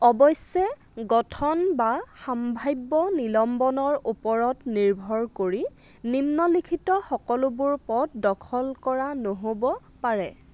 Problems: constant background noise